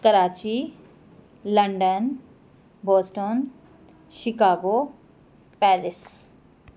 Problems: constant background noise